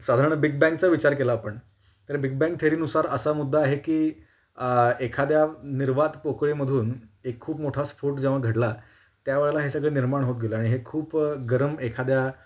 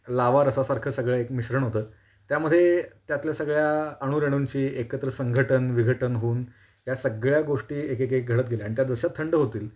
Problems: constant background noise